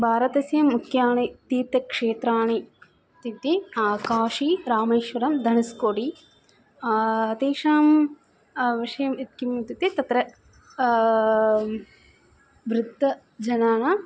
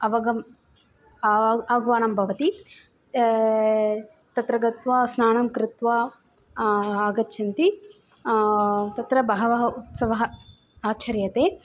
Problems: constant background noise